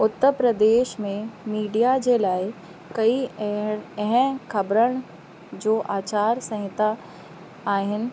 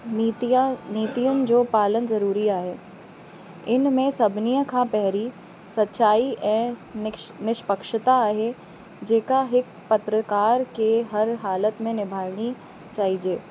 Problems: constant background noise